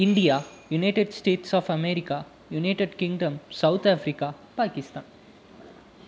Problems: background sounds at intervals